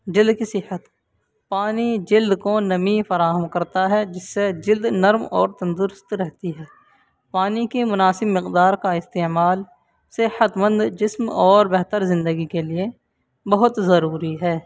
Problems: constant background noise